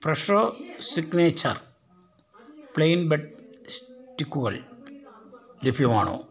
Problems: background conversations at intervals